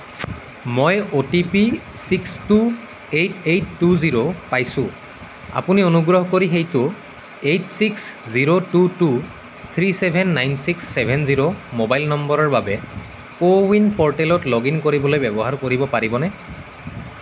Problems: none marked